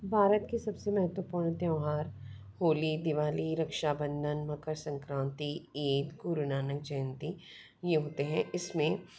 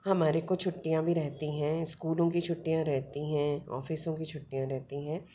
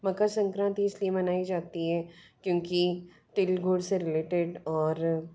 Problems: background sounds at intervals